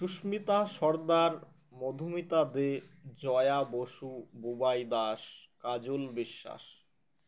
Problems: constant background noise